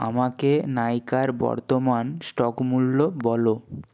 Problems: none marked